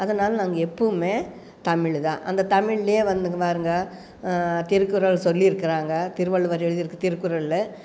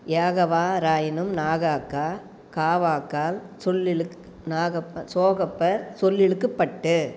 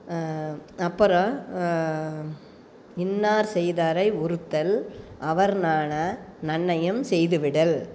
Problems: none marked